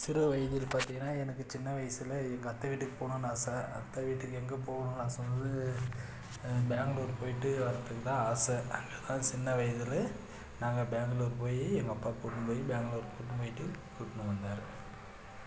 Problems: low volume